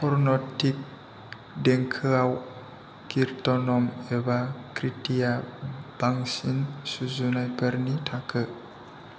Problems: none marked